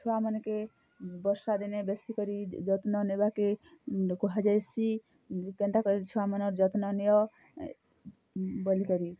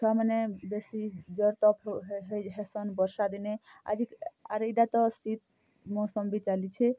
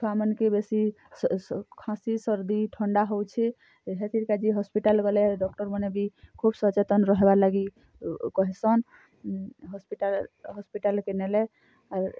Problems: none marked